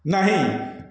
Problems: echo